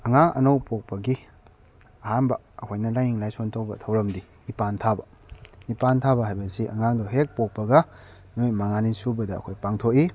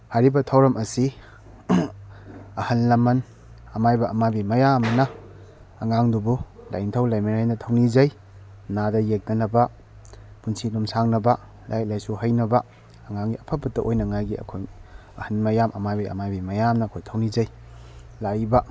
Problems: background sounds at intervals